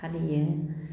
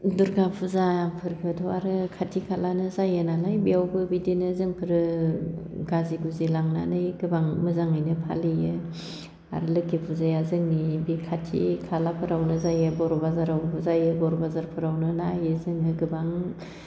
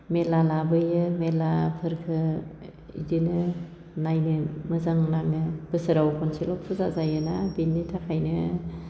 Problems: constant background noise